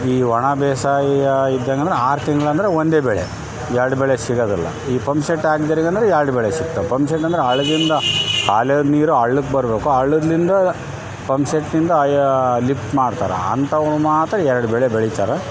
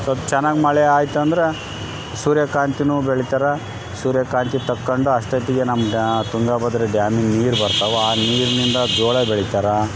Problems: constant background noise